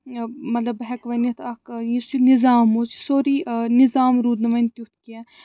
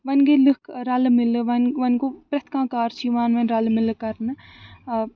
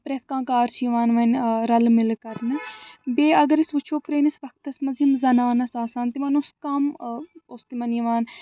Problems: none marked